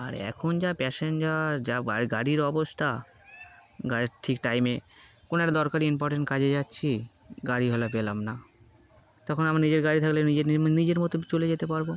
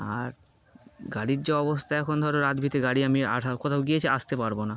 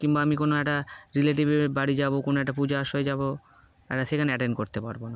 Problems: constant background noise